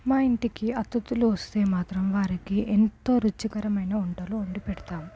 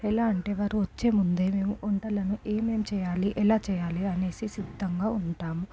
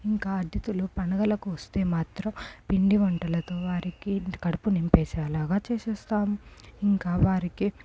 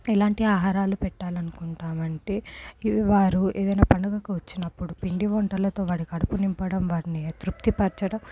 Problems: low volume